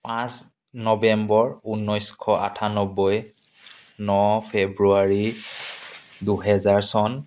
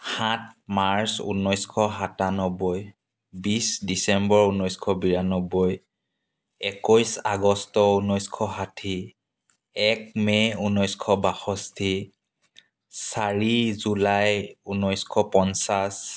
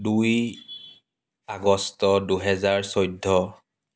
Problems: none marked